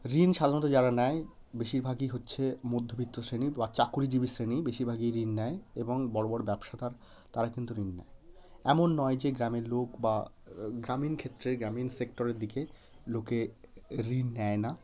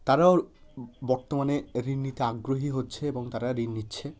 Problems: constant background noise